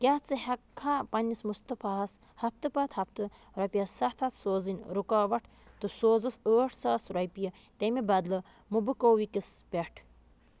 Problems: constant background noise